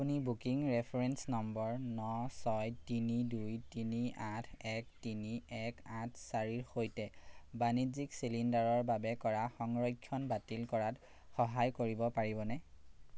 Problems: none marked